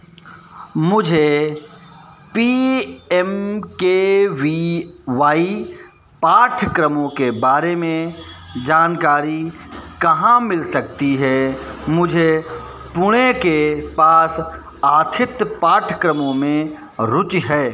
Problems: none marked